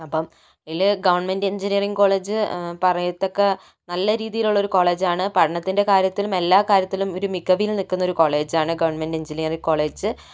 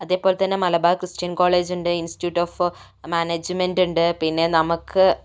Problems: none marked